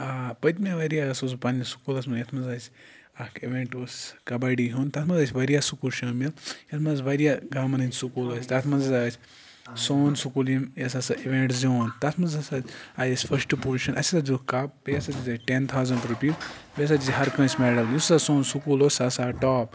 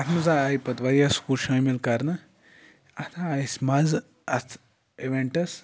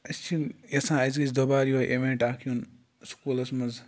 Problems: constant background noise